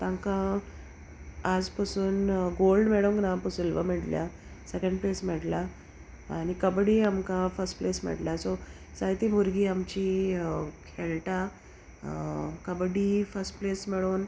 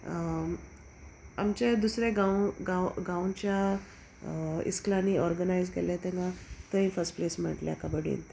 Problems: background conversations at intervals